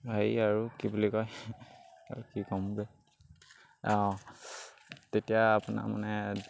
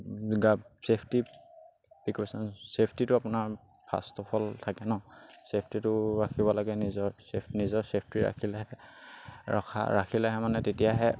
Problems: background sounds at intervals